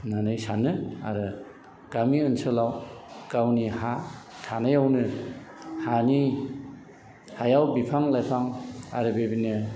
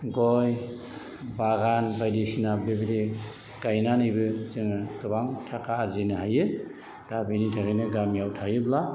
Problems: none marked